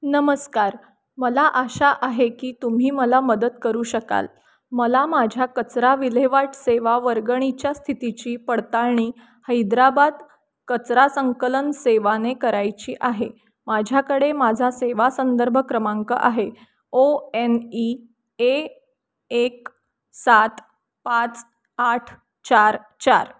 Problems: none marked